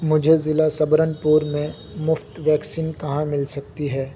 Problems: constant background noise